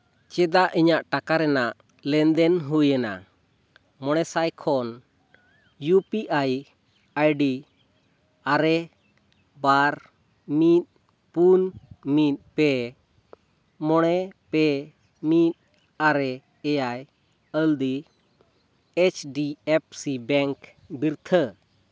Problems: background sounds at intervals